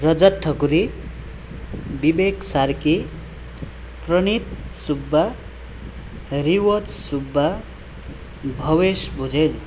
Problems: background sounds at intervals